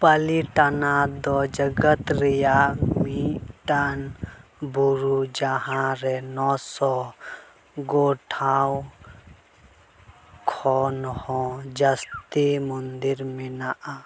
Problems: none marked